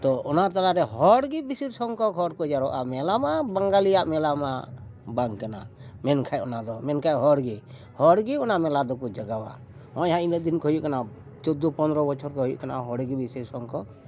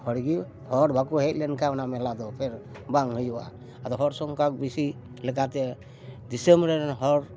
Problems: constant background noise, background conversations at intervals